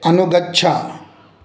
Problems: none marked